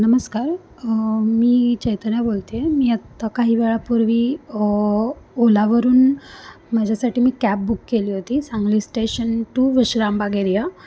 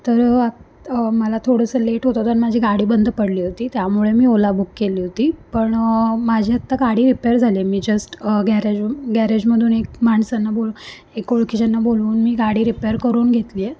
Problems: none marked